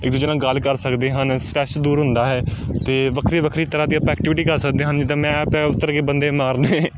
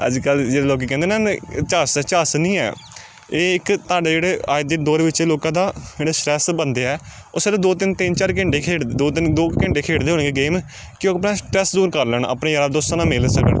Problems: constant background noise